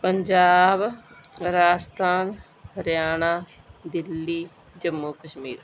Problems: background sounds at intervals